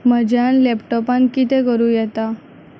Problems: constant background noise, low volume